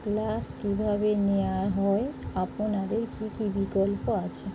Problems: constant background noise